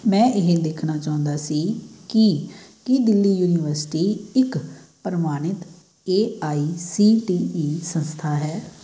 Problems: background sounds at intervals